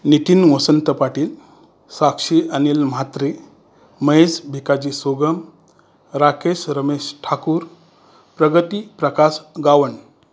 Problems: constant background noise